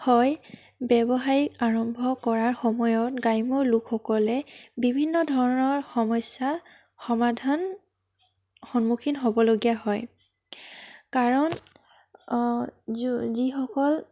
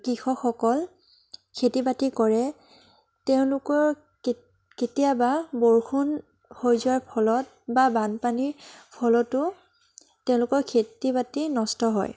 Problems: none marked